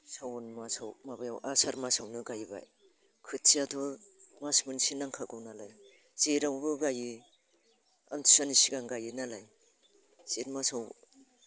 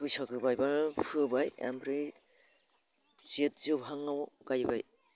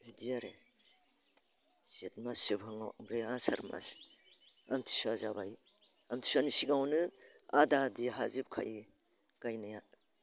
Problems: constant background noise